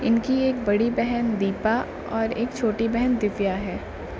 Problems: constant background noise